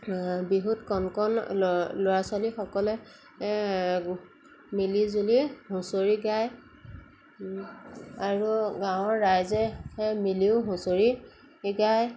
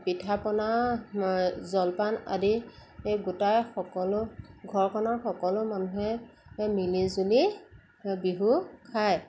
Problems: none marked